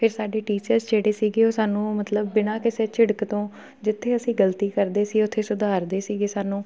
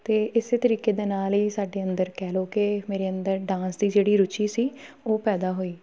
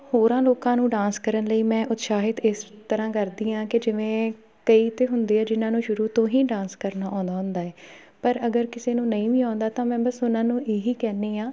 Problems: background sounds at intervals, background conversations at intervals